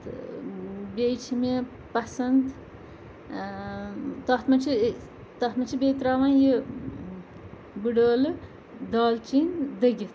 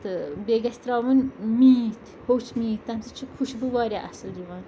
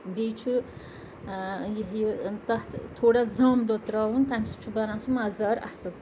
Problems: background sounds at intervals, background conversations at intervals